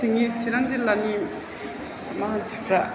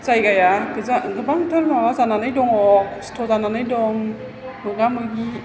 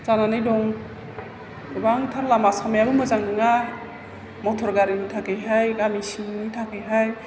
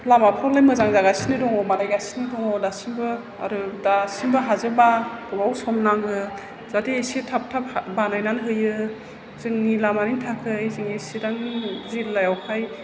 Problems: none marked